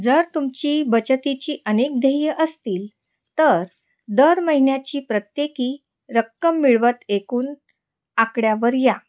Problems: background sounds at intervals